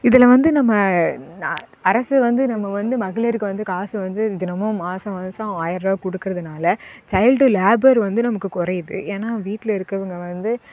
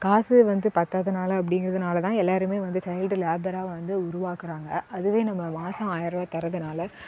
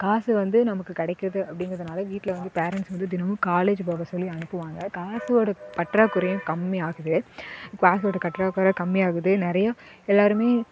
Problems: none marked